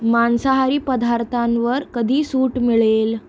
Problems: background sounds at intervals